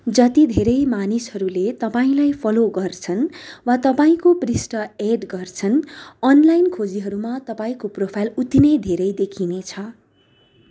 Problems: background sounds at intervals